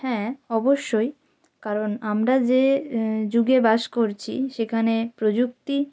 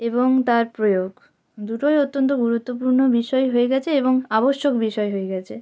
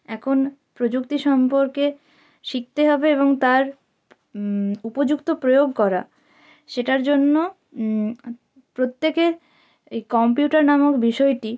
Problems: background sounds at intervals